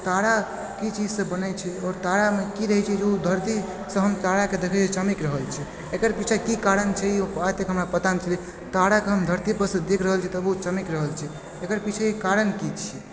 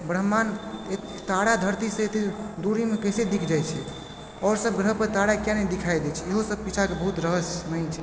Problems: constant background noise